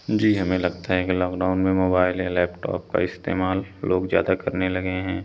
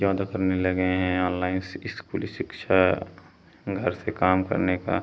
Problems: none marked